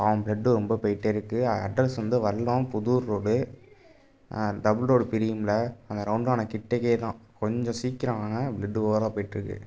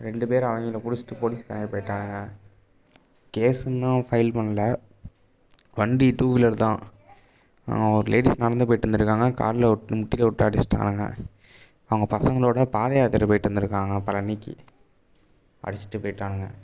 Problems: background sounds at intervals